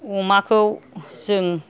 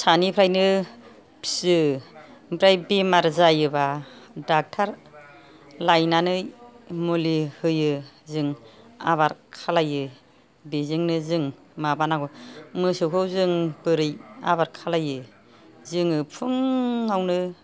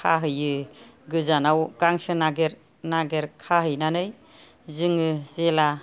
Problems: none marked